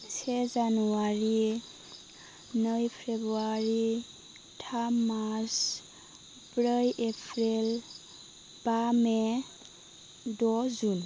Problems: none marked